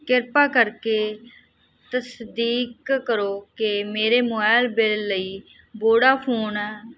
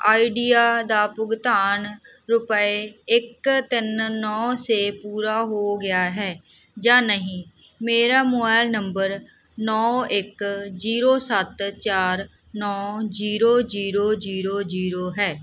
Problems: background sounds at intervals